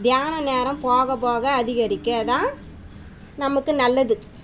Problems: constant background noise